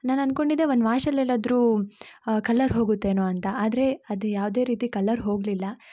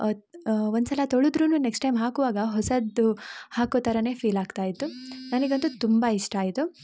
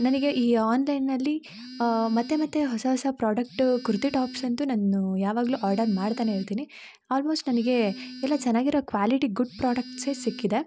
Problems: background sounds at intervals